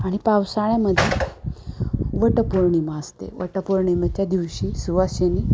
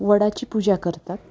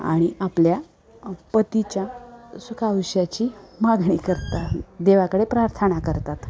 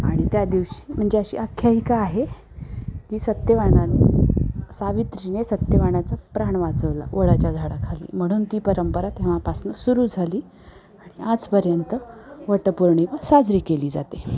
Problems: constant background noise, continuous background conversations